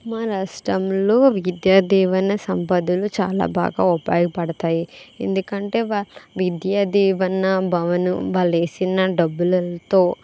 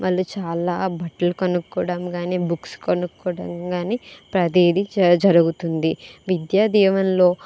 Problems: constant background noise